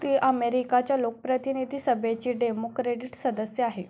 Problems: none marked